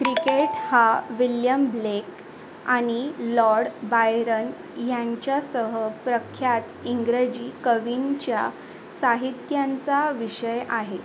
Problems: constant background noise